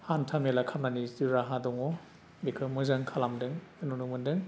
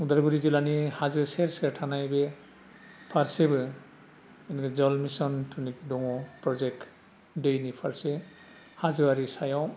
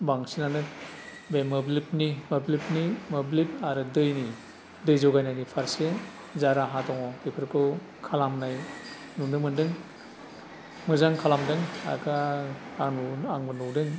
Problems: none marked